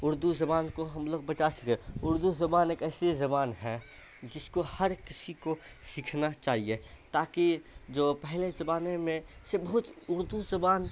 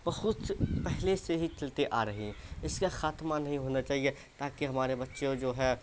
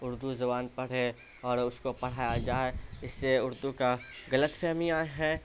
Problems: constant background noise